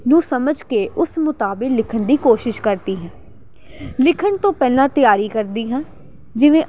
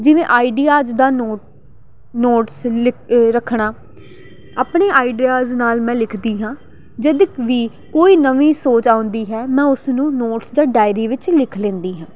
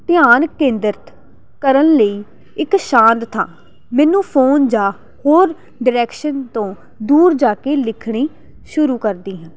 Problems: none marked